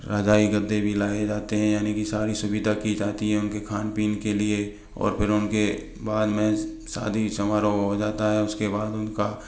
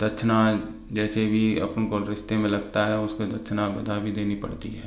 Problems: background sounds at intervals